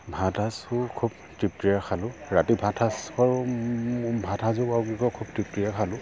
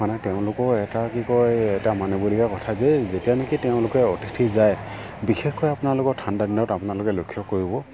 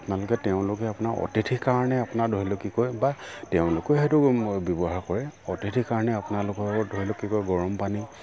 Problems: none marked